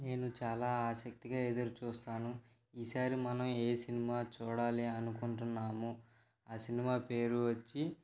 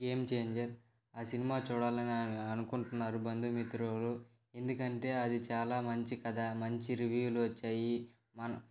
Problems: background sounds at intervals